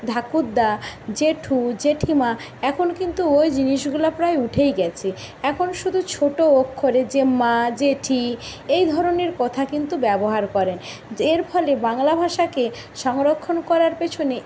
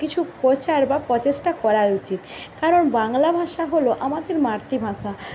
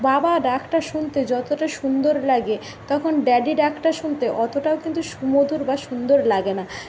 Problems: constant background noise